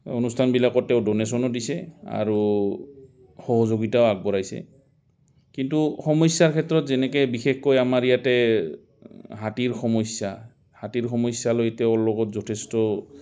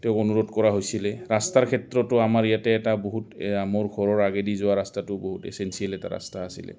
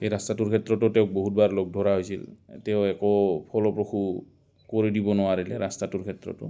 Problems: constant background noise